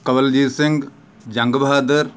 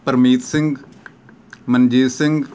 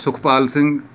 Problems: background sounds at intervals